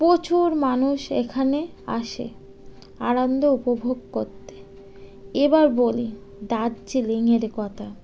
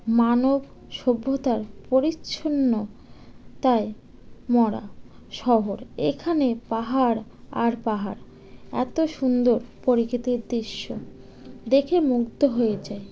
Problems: background sounds at intervals